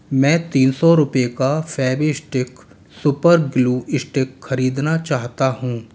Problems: none marked